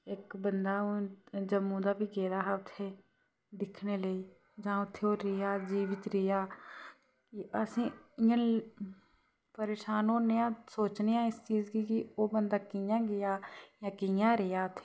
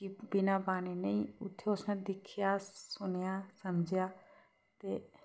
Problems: background sounds at intervals